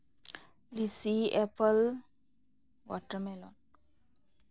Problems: none marked